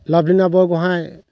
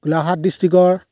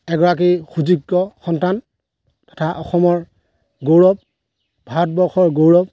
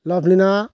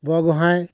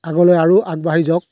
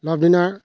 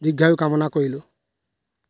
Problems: background sounds at intervals